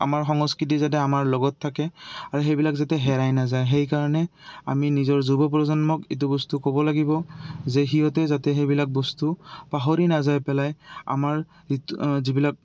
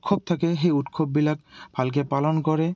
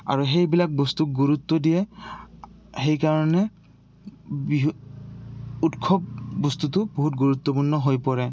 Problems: constant background noise